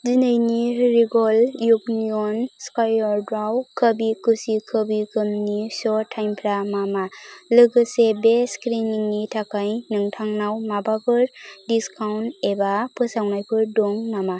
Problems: constant background noise